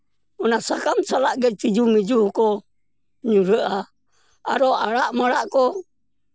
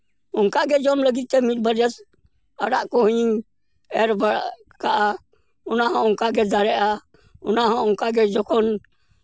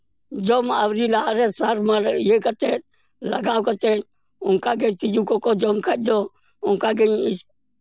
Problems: background sounds at intervals